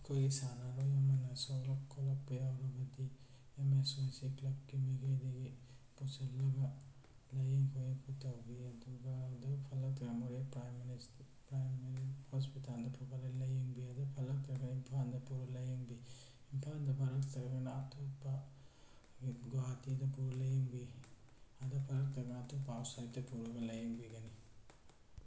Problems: low volume